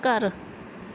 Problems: none marked